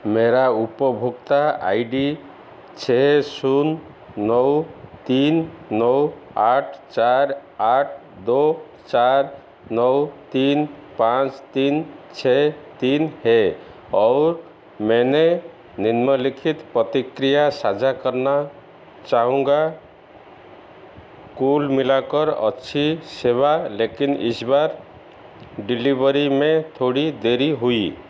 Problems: background sounds at intervals